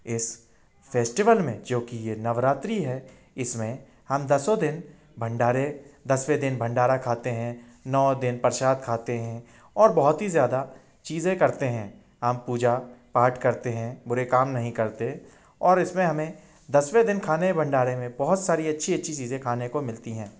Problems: constant background noise